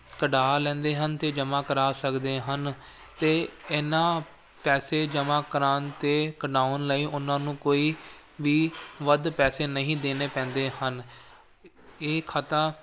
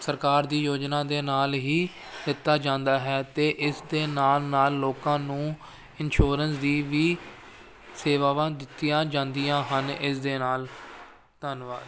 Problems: constant background noise